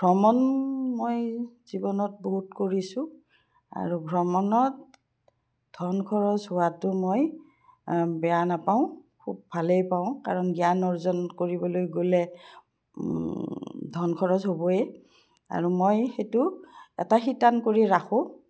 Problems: none marked